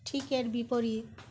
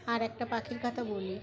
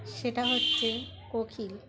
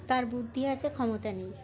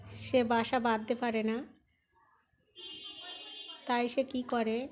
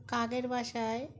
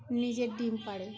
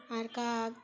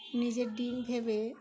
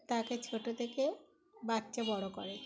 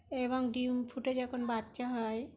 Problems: constant background noise, continuous background conversations